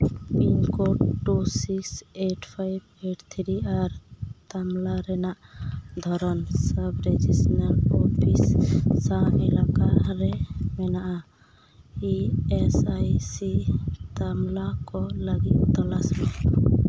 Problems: none marked